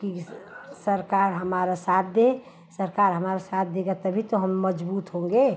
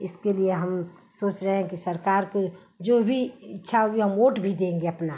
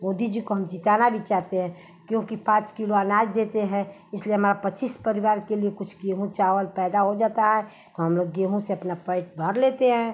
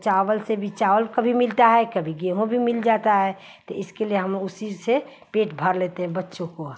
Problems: none marked